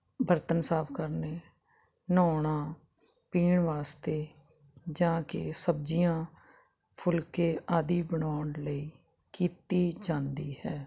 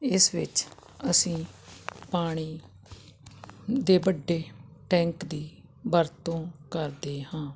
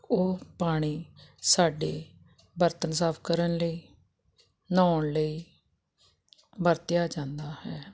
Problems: none marked